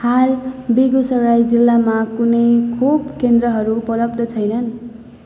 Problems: constant background noise